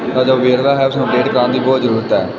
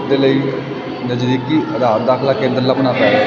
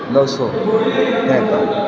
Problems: constant background noise, background conversations at intervals